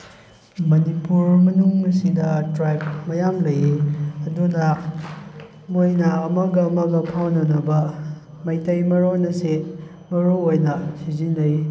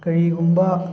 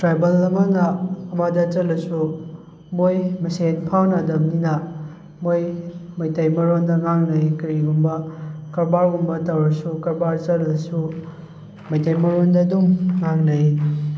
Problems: background conversations at intervals